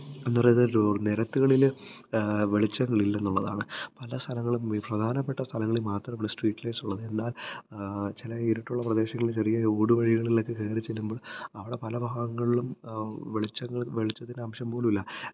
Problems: low volume